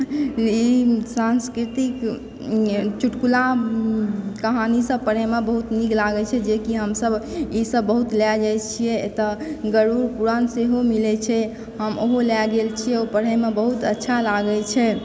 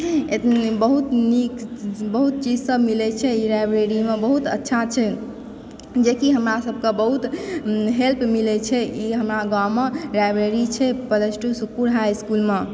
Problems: background sounds at intervals